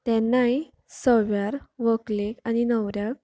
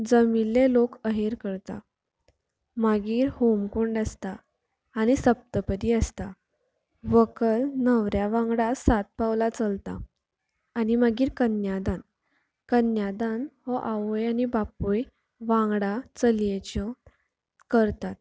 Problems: low volume